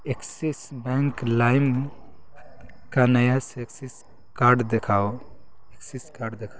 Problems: constant background noise